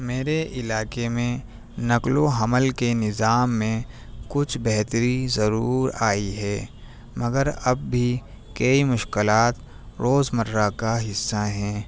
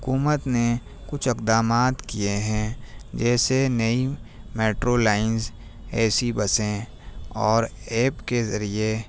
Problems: none marked